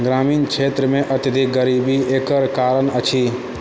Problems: background sounds at intervals